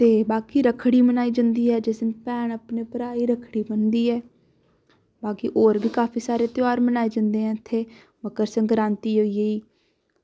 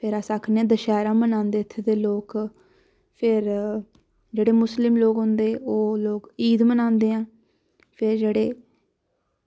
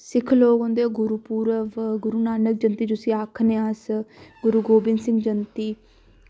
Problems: background sounds at intervals